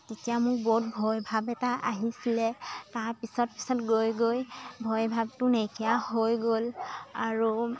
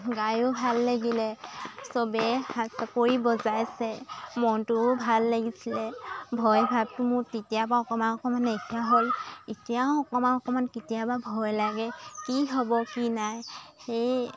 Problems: constant background noise, continuous background conversations